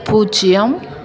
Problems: constant background noise